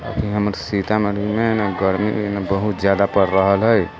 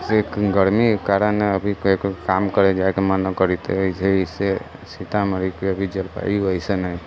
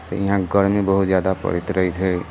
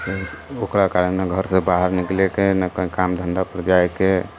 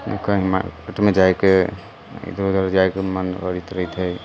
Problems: constant background noise